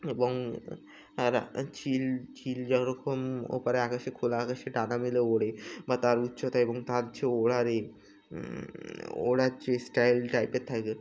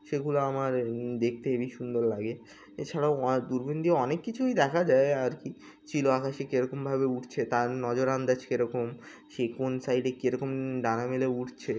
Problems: background sounds at intervals